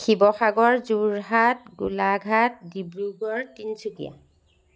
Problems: none marked